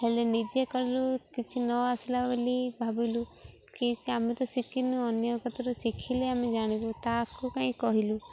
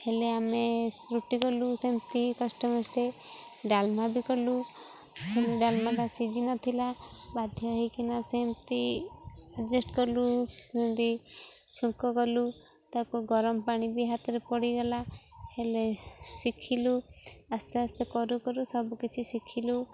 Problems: constant background noise